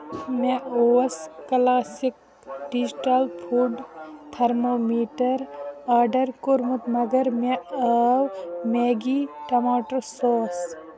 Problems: background sounds at intervals